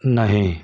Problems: none marked